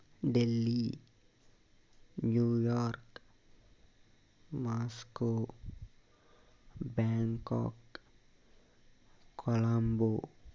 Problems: constant background noise, low volume